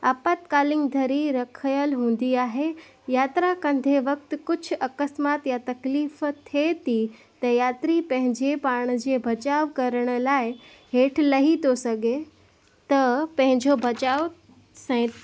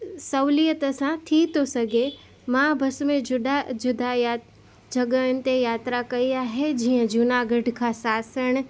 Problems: constant background noise